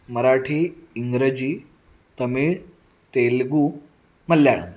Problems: background sounds at intervals, background conversations at intervals